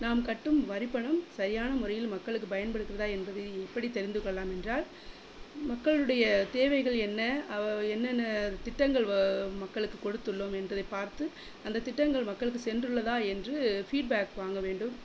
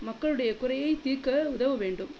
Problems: constant background noise